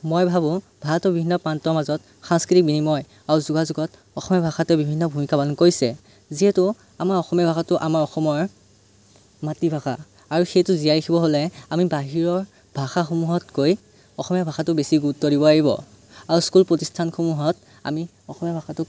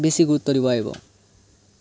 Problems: none marked